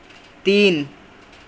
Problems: none marked